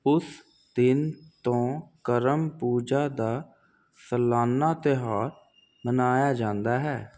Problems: constant background noise